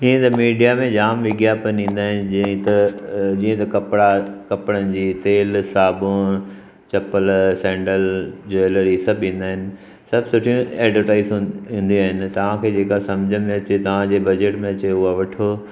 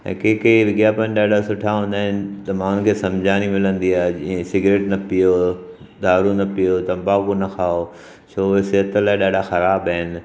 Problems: background sounds at intervals, echo